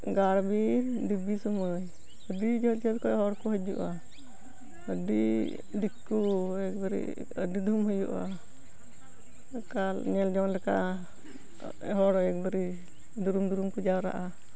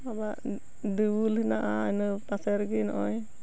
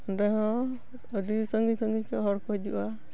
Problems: background sounds at intervals, continuous background conversations